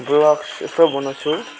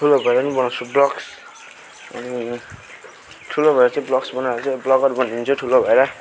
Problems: none marked